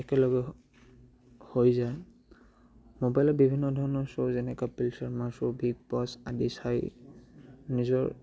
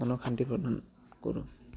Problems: none marked